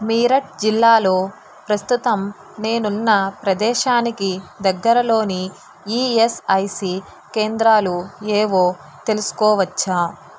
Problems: constant background noise